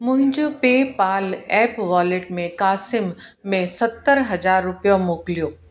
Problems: echo